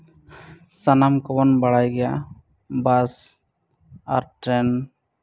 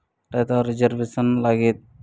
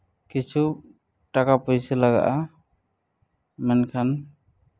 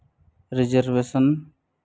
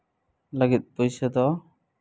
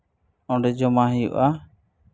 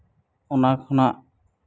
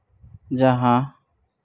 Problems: none marked